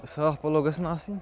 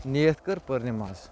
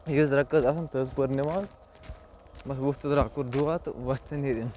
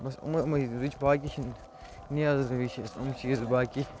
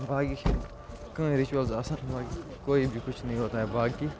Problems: low volume